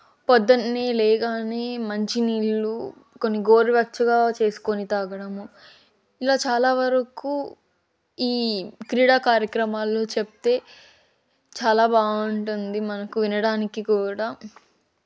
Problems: none marked